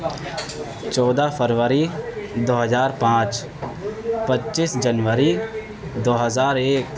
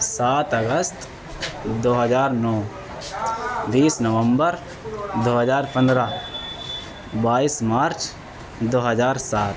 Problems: constant background noise, continuous background conversations